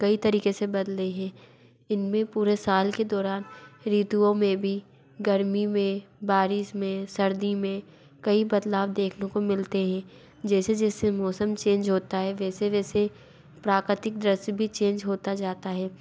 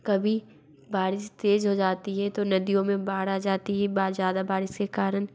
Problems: background sounds at intervals